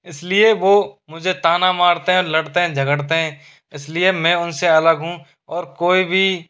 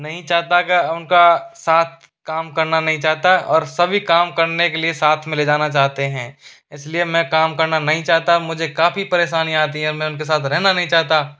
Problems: constant background noise